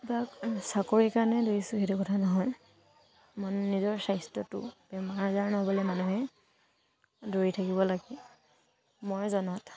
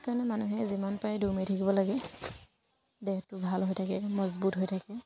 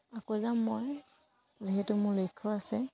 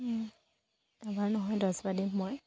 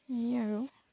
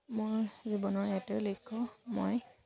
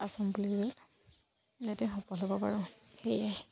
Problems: background sounds at intervals